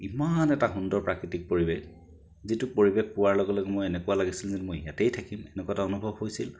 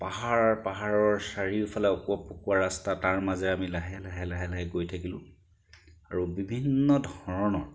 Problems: background sounds at intervals